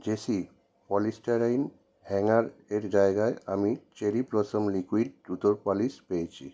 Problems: none marked